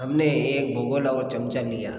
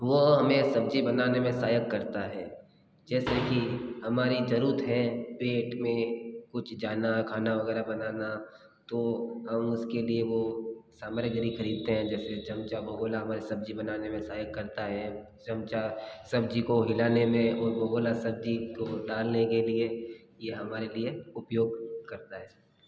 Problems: background sounds at intervals